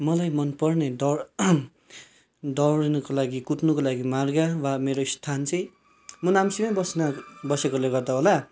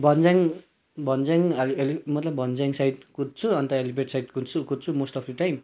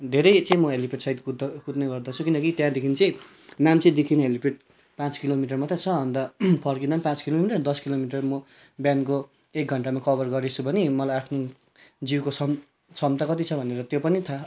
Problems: background sounds at intervals